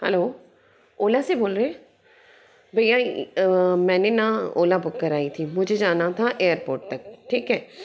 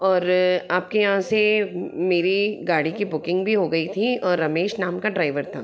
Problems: none marked